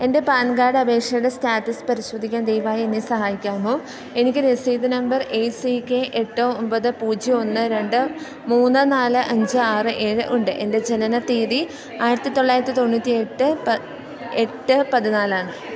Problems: constant background noise